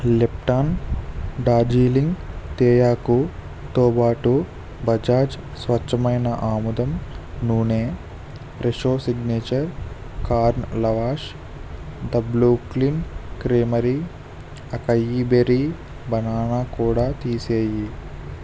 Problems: constant background noise